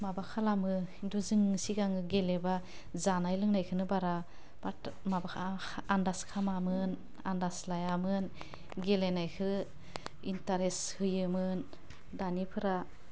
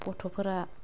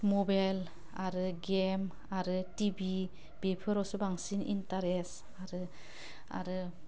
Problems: low volume